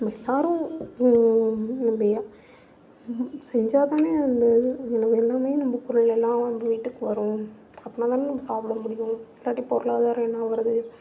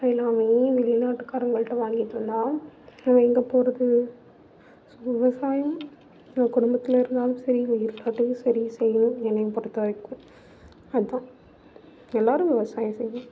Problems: background sounds at intervals, low volume